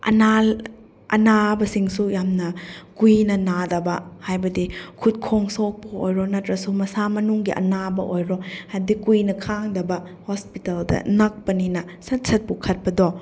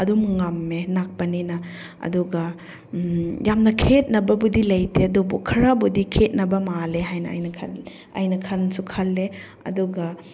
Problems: none marked